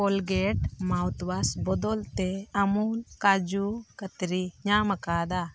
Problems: none marked